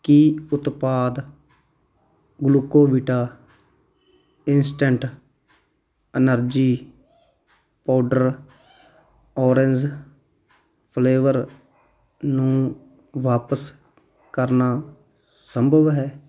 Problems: none marked